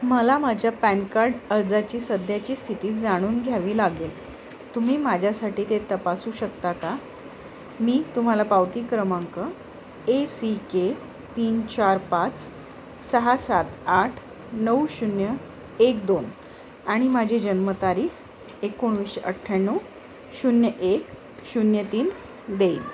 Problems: constant background noise, background conversations at intervals